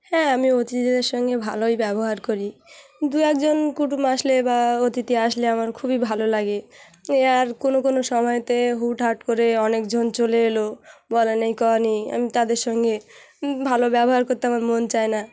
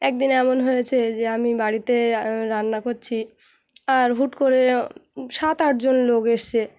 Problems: none marked